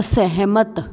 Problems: background sounds at intervals